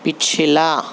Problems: constant background noise